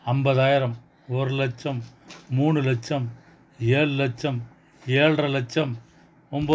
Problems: background sounds at intervals